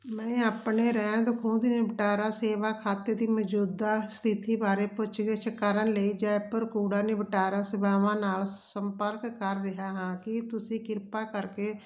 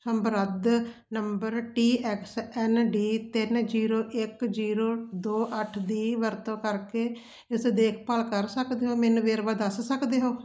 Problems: background sounds at intervals